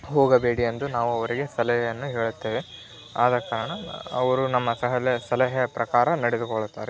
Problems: constant background noise